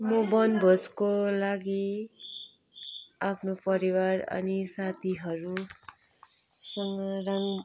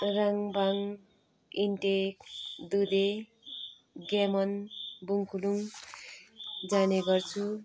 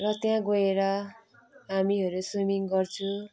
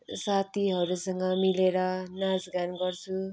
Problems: background sounds at intervals, continuous background conversations